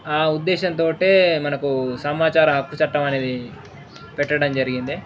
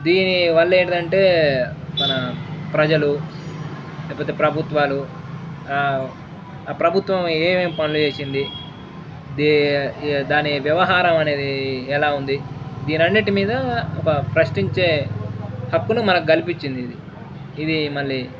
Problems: none marked